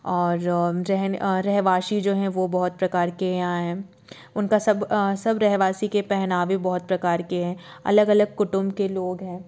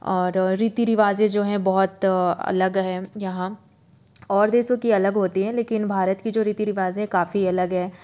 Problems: background sounds at intervals